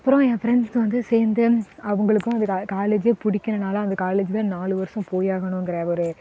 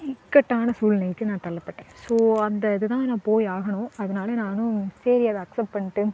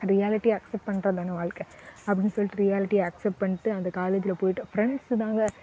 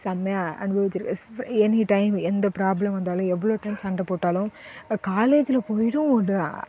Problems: constant background noise